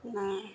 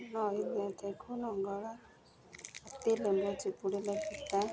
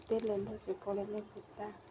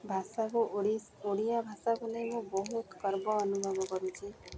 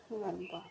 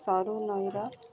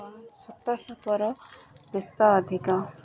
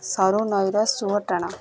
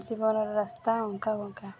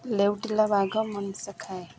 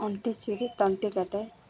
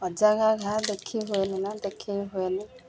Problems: constant background noise